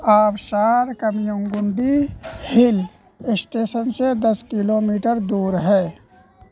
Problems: constant background noise